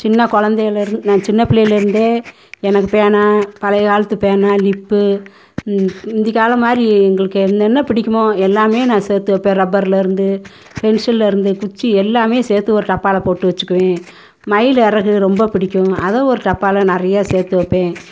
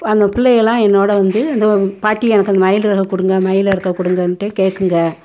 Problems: none marked